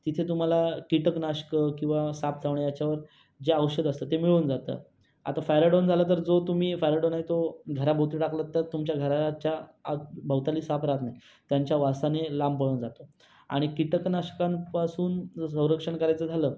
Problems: background sounds at intervals